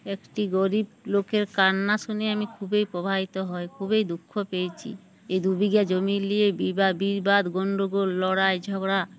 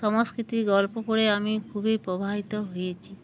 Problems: background sounds at intervals